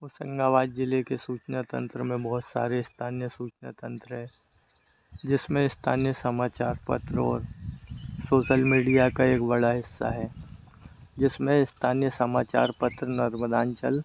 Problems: none marked